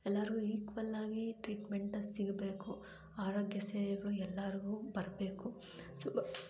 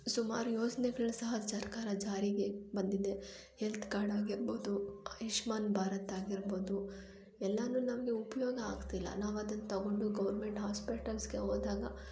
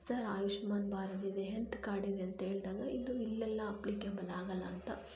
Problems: low volume